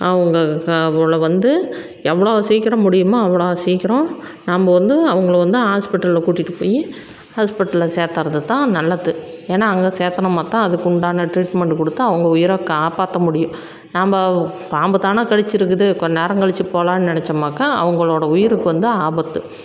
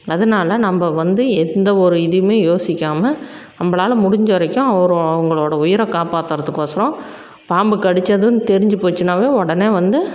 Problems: constant background noise